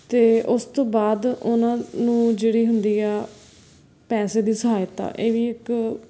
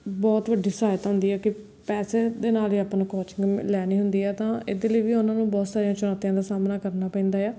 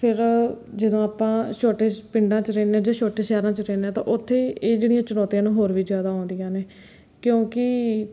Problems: background sounds at intervals